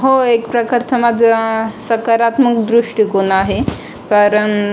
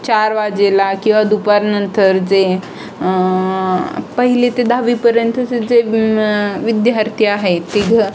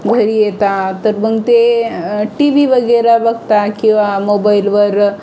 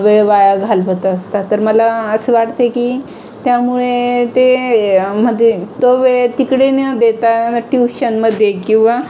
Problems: constant background noise